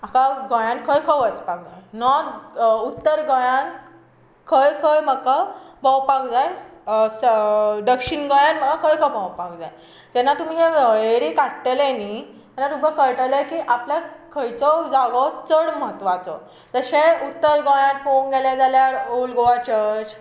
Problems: constant background noise